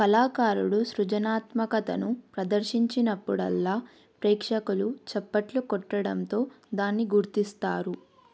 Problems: none marked